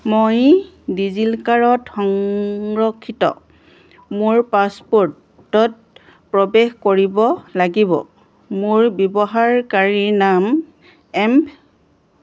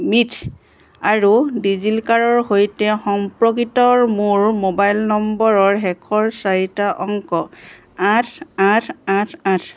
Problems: none marked